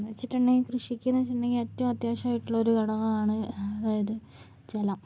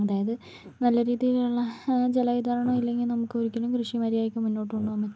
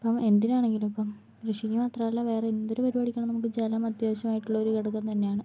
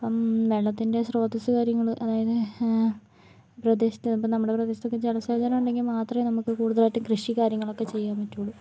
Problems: low volume